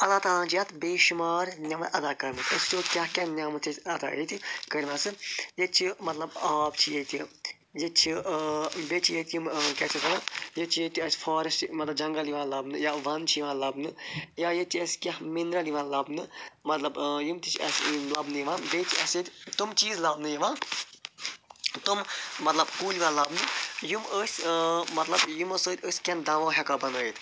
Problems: none marked